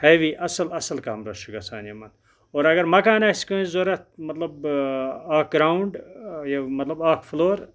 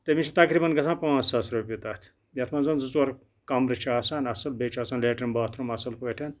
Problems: none marked